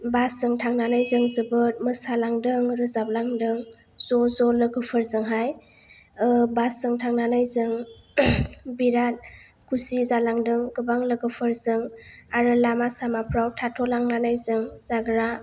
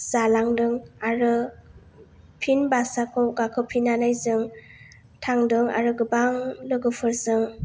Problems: none marked